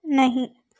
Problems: background sounds at intervals